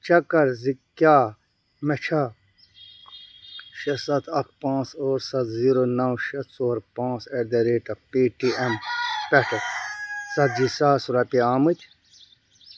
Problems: background sounds at intervals